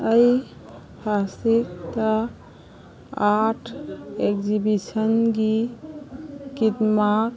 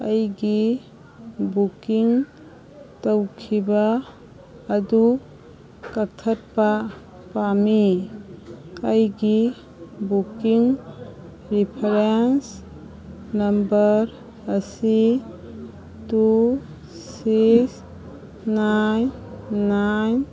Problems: background sounds at intervals